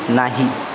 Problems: constant background noise